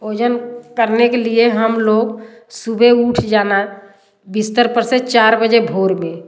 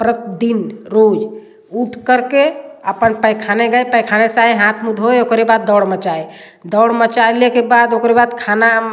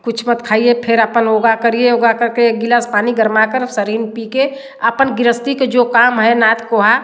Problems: constant background noise